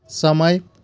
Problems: constant background noise